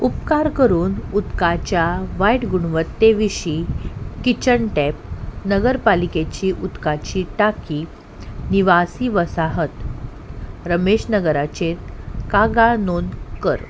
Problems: background sounds at intervals